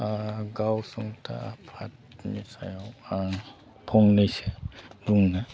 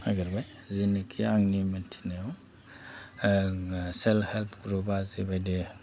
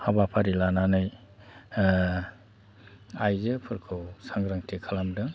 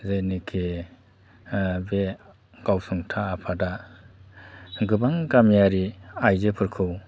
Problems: constant background noise